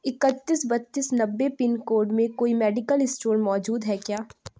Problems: none marked